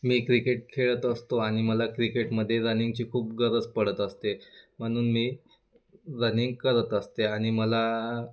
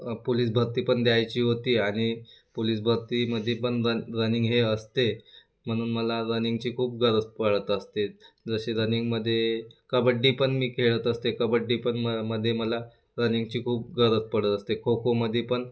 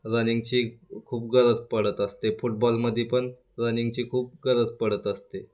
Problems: constant background noise